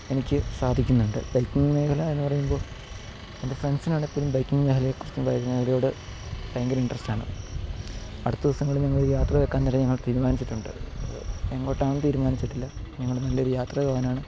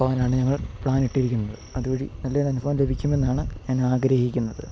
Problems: background sounds at intervals